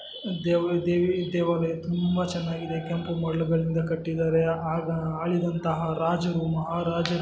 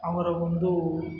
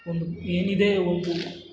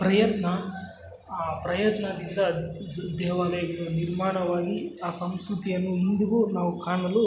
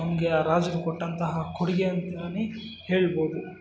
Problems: constant background noise